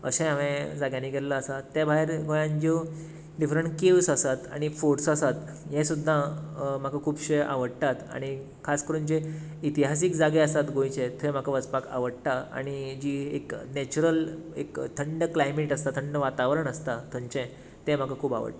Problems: none marked